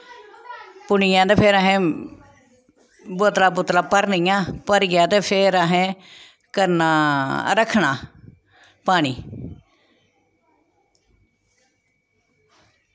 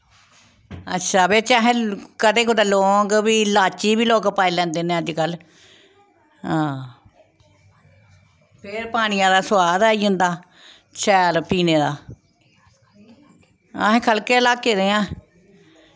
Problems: background sounds at intervals, background conversations at intervals